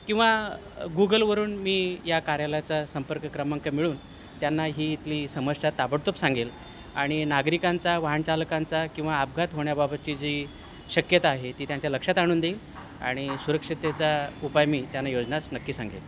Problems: constant background noise